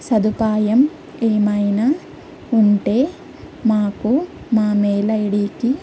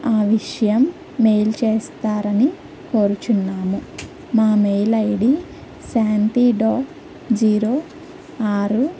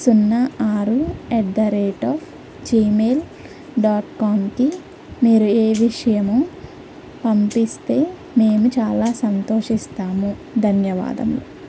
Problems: low volume